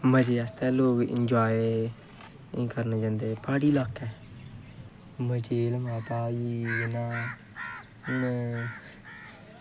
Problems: constant background noise, low volume